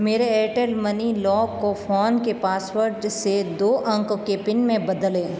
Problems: constant background noise